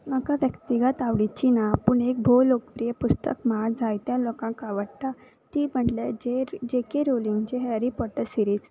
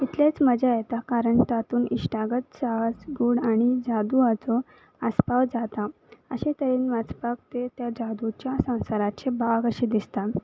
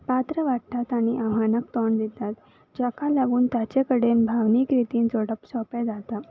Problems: background sounds at intervals